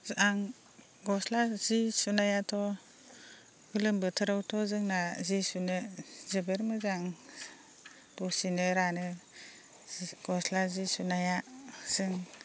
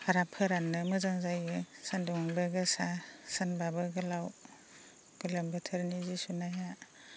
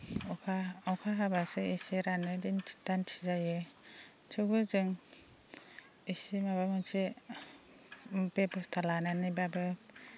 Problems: constant background noise